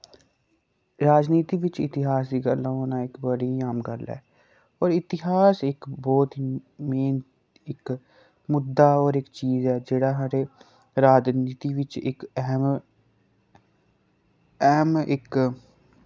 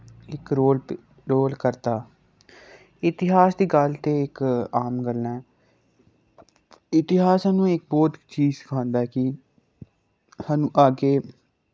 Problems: none marked